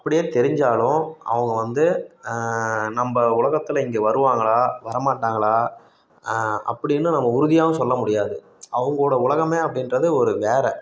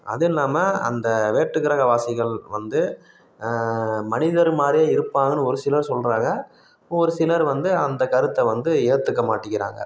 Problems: background sounds at intervals